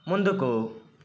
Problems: constant background noise